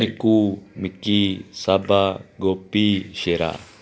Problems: background conversations at intervals